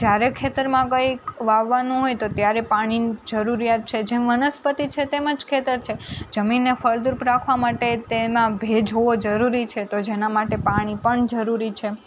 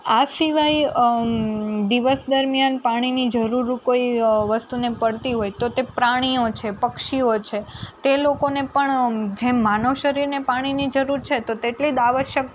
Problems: none marked